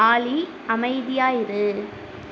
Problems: constant background noise